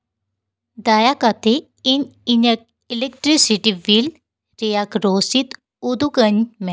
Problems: none marked